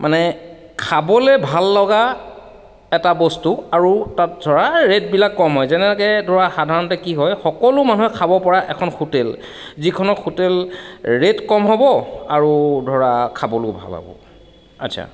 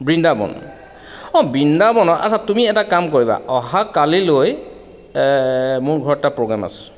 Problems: constant background noise